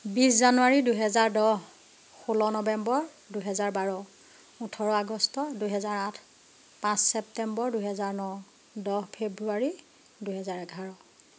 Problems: background sounds at intervals